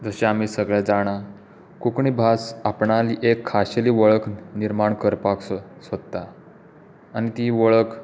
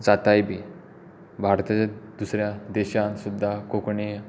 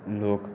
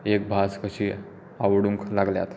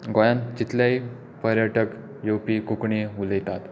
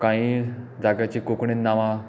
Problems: constant background noise